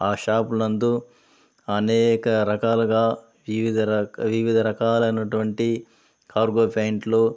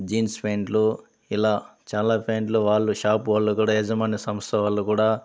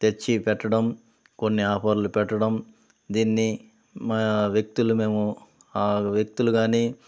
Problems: none marked